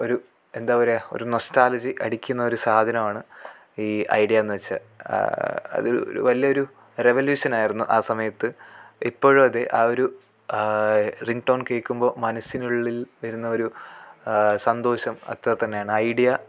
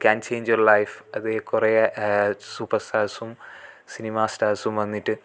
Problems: none marked